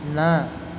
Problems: constant background noise